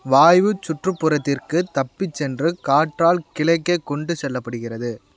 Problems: constant background noise